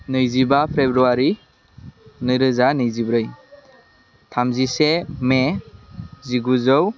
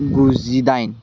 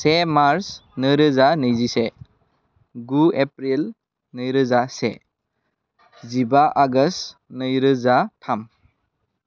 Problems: none marked